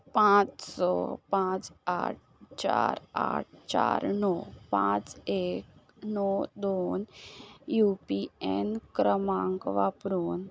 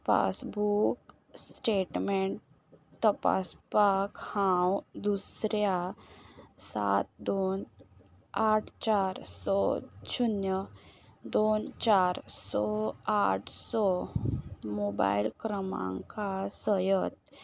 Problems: background sounds at intervals